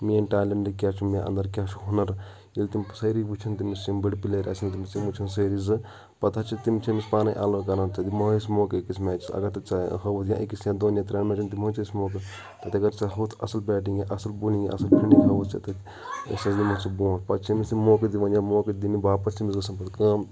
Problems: background sounds at intervals, continuous background conversations